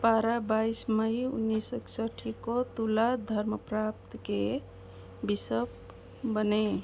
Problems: none marked